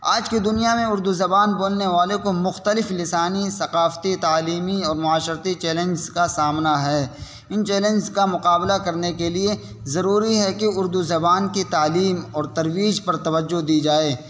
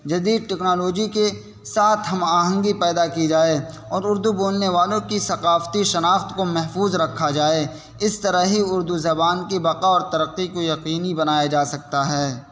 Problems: constant background noise